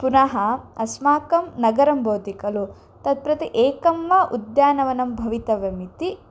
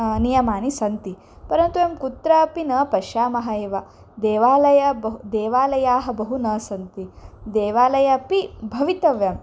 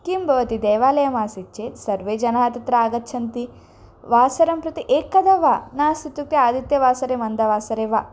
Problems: none marked